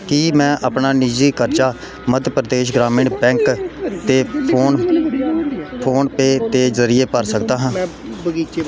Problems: continuous background conversations